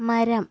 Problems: none marked